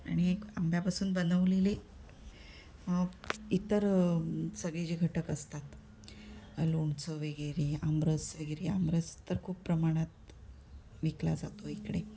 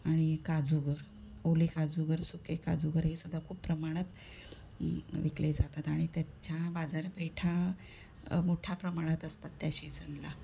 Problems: none marked